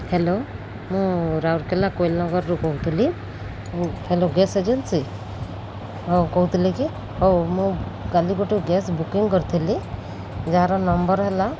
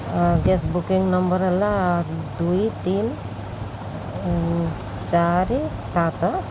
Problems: constant background noise